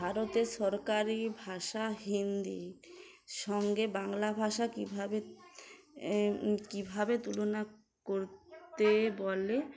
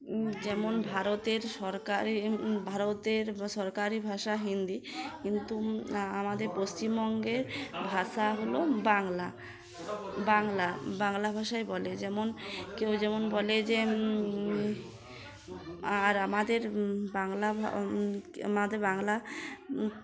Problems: constant background noise